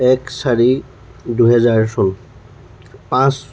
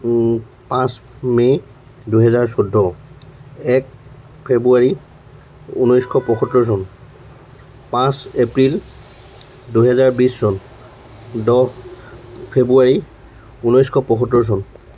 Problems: constant background noise